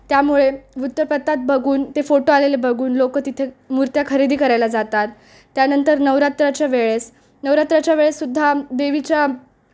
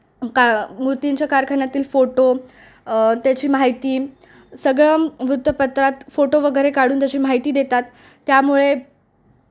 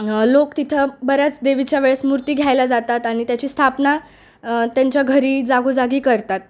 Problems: none marked